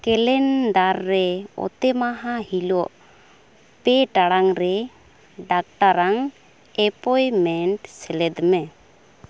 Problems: constant background noise